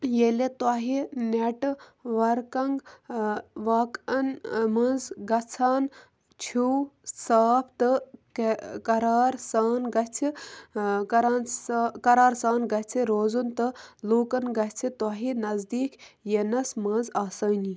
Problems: low volume